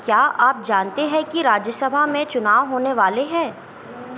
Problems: none marked